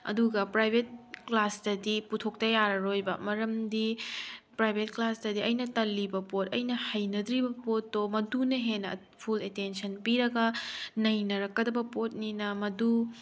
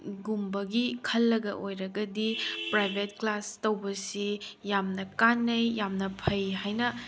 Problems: background sounds at intervals